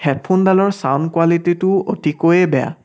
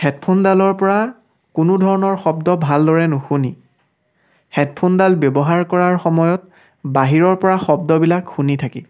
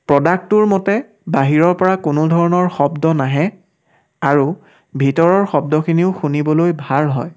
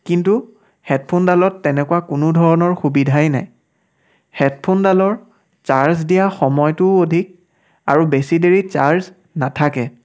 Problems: none marked